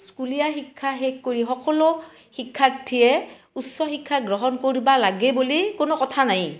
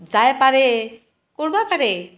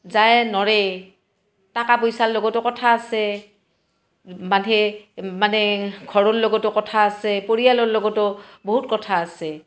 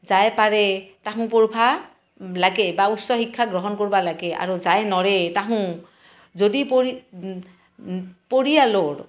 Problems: constant background noise